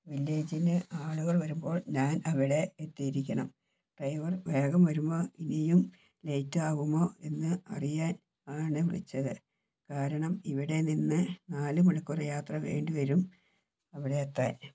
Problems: background sounds at intervals, low volume